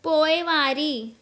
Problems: constant background noise